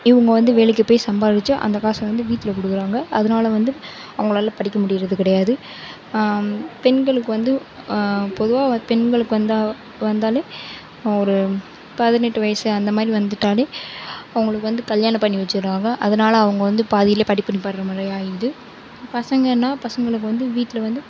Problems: none marked